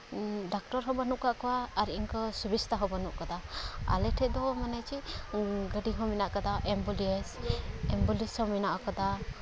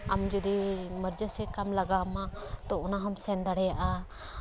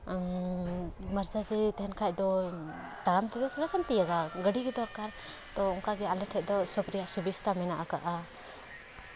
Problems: none marked